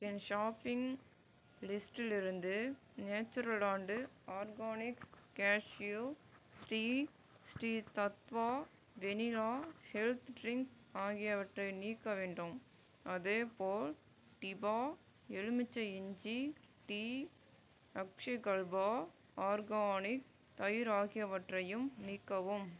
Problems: low volume